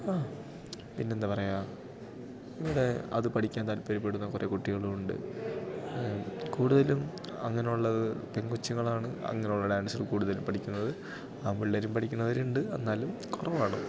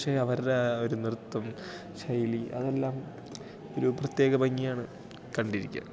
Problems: background sounds at intervals